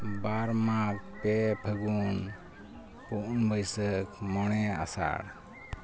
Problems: constant background noise